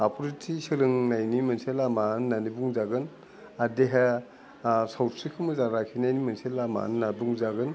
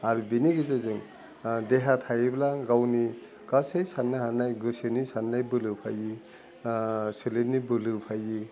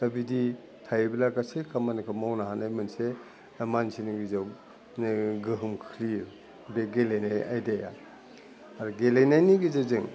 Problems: low volume